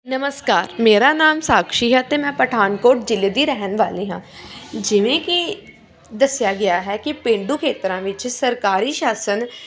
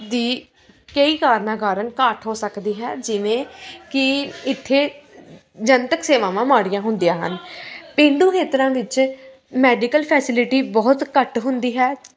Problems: continuous background conversations